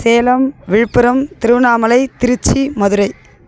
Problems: background sounds at intervals